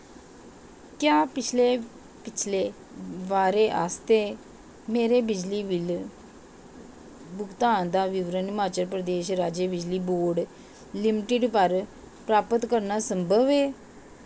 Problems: constant background noise